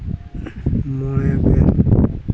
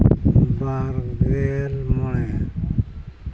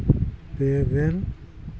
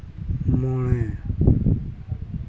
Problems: constant background noise